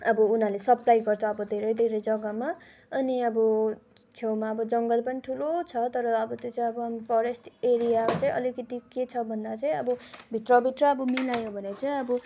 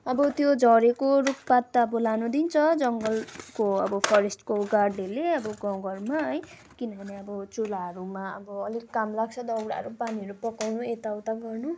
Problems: background sounds at intervals